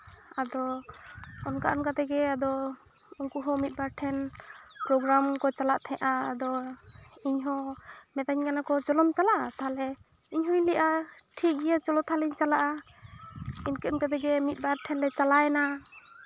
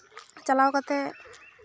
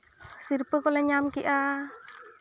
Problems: background sounds at intervals